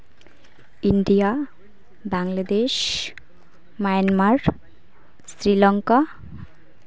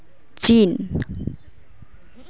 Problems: background sounds at intervals, continuous background conversations